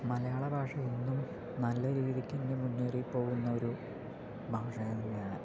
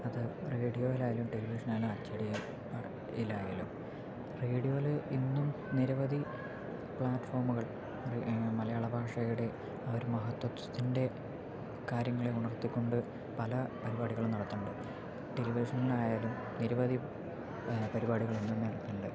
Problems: low volume